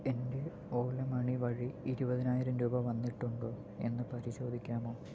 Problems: low volume